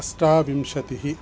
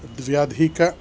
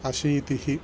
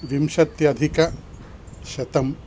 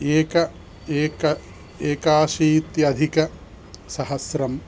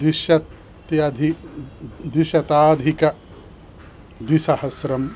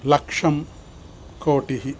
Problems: constant background noise